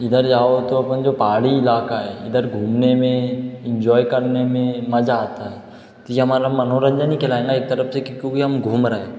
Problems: echo